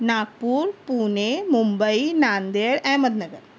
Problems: none marked